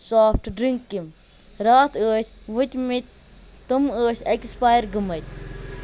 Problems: constant background noise